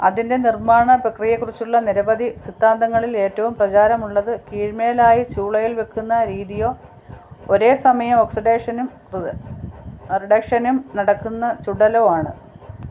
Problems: none marked